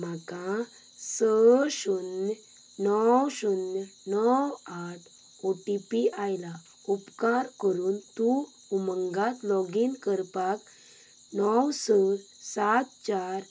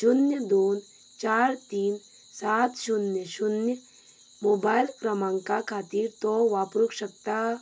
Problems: background sounds at intervals